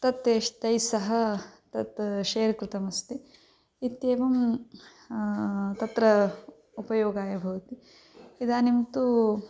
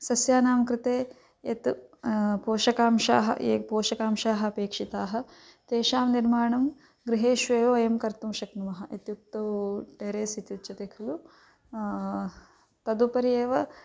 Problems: none marked